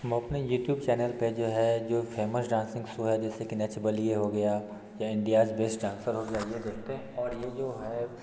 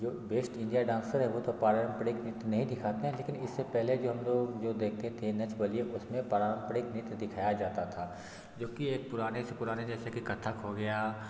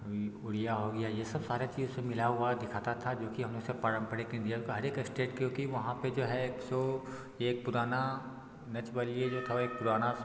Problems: constant background noise